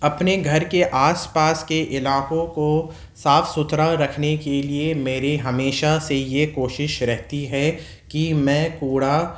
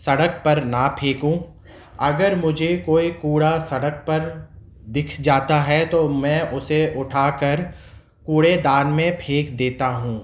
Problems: none marked